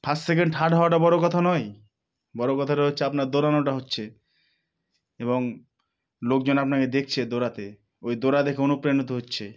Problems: none marked